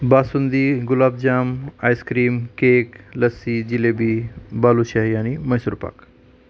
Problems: none marked